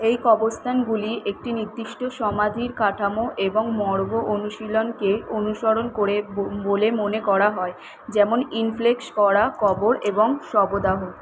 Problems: constant background noise